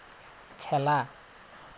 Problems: constant background noise